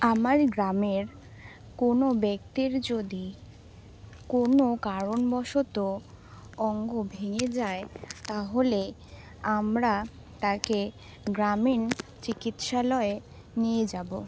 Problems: none marked